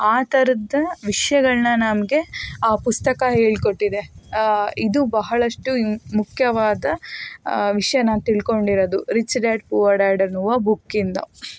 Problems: none marked